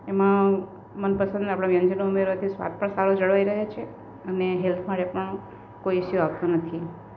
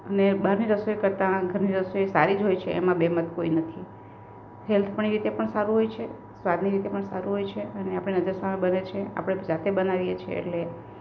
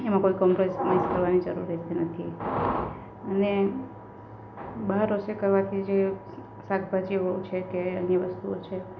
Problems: none marked